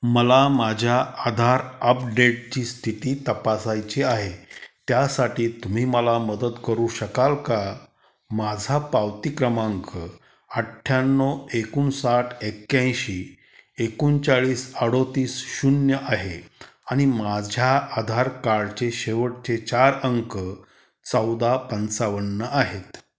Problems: constant background noise